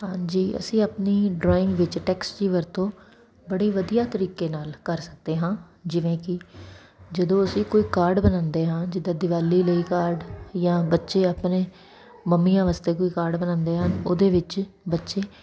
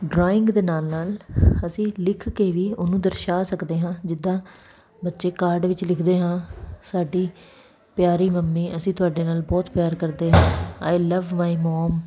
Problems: none marked